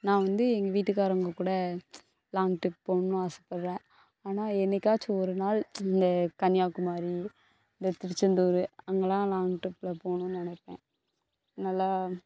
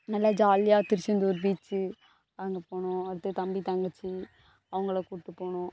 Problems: constant background noise